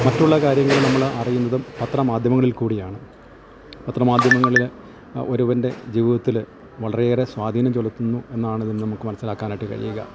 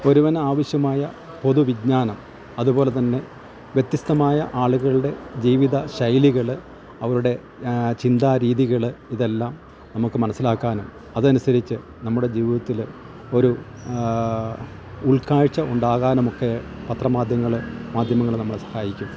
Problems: constant background noise, low volume